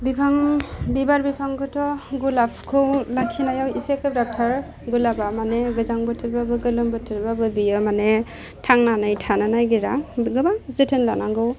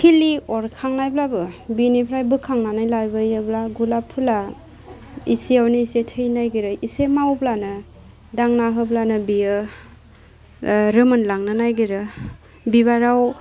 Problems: constant background noise